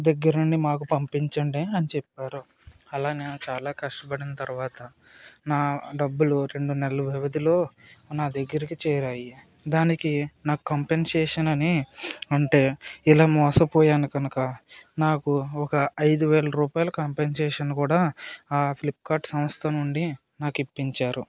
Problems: none marked